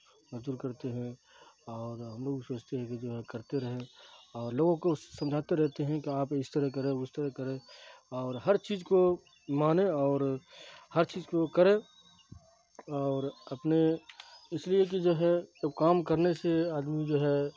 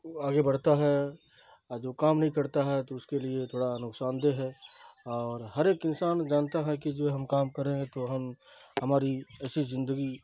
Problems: constant background noise, low volume